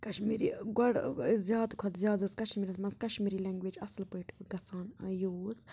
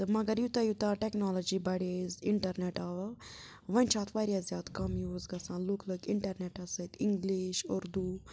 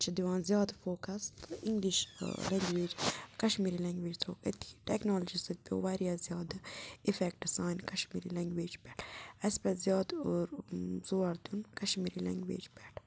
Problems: constant background noise